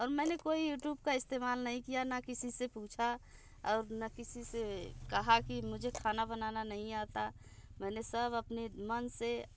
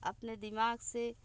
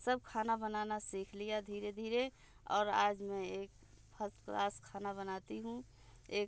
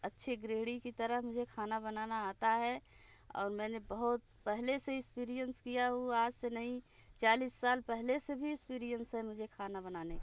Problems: none marked